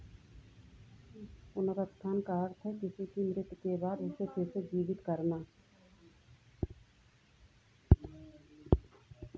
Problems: low volume